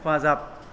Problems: low volume